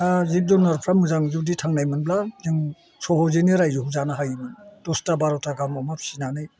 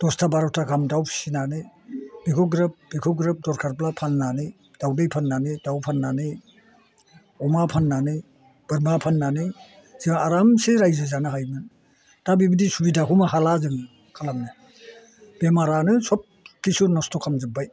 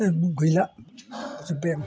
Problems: constant background noise